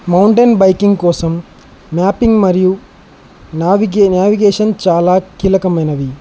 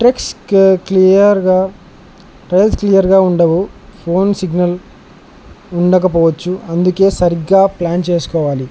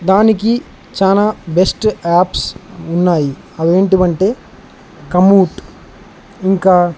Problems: none marked